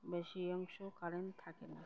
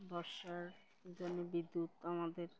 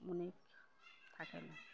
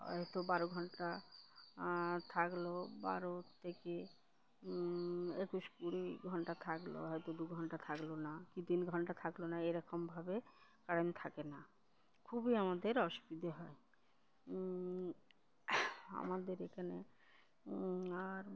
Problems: none marked